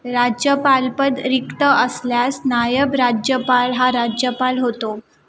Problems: background sounds at intervals